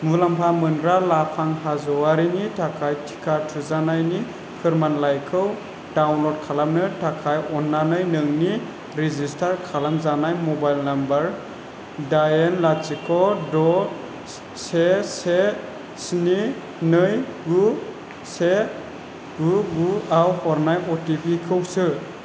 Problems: constant background noise